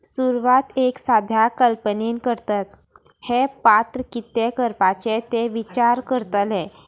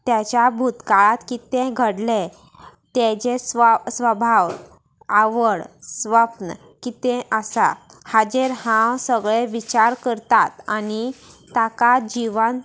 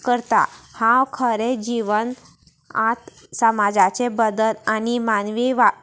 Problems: none marked